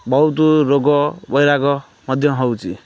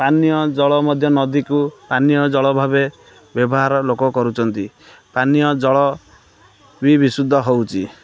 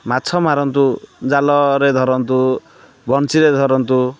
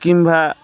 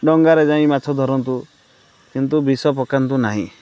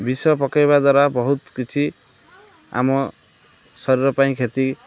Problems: background sounds at intervals, background conversations at intervals